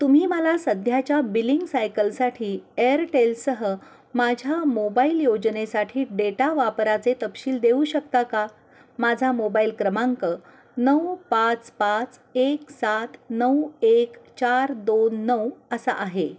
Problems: none marked